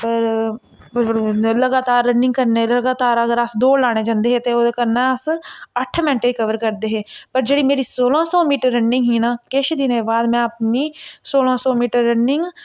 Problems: none marked